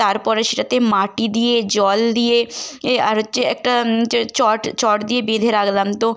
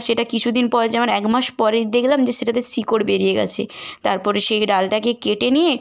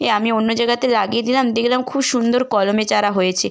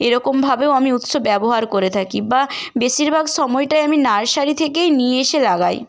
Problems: constant background noise